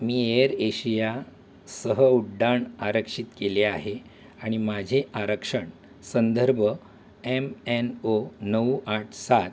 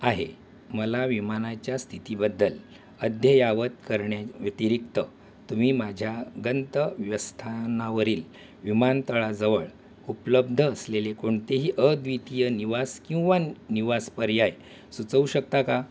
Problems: none marked